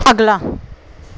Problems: none marked